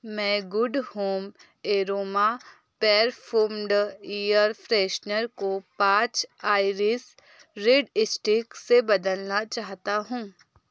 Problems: background sounds at intervals